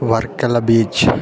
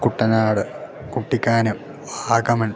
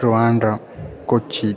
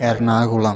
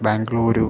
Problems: background sounds at intervals